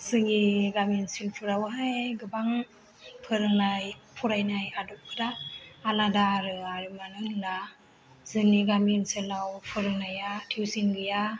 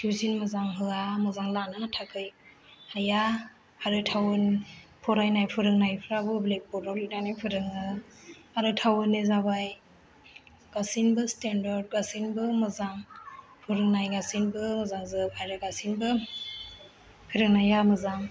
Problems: low volume